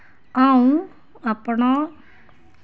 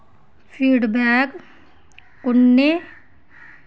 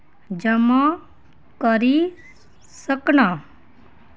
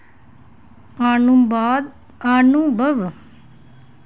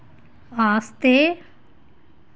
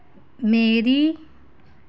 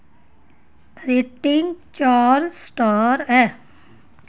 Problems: none marked